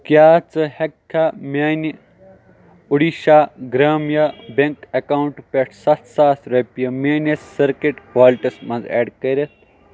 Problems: background sounds at intervals